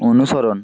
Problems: constant background noise